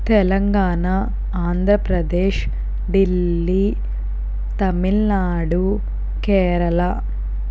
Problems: constant background noise